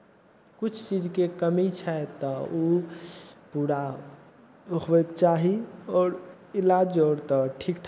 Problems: none marked